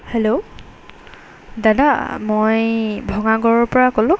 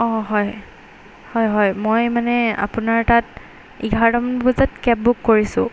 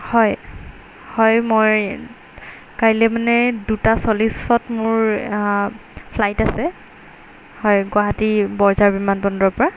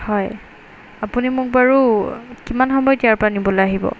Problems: background sounds at intervals